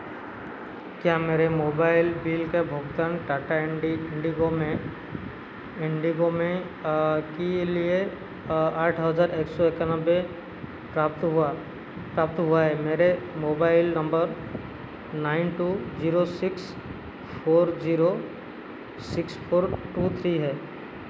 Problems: constant background noise